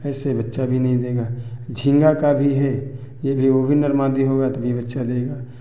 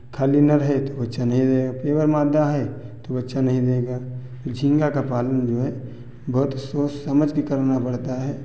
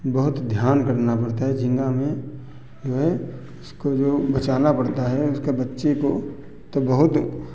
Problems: none marked